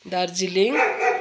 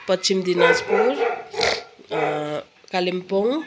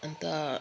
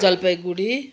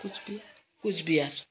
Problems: constant background noise, continuous background conversations